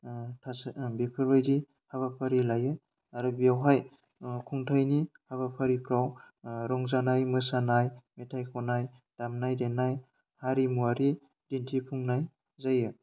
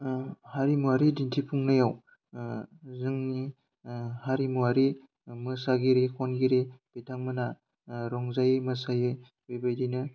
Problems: none marked